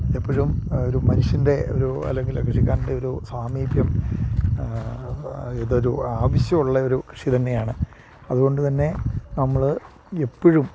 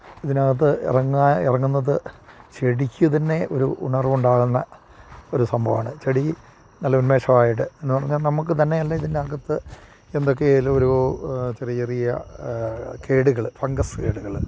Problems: none marked